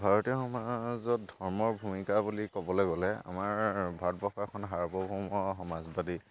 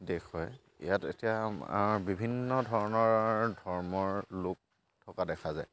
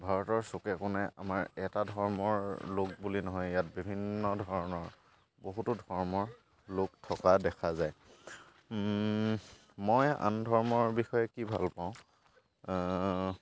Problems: constant background noise